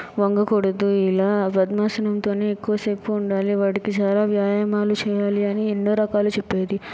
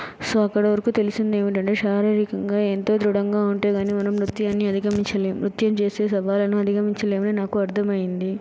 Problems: background sounds at intervals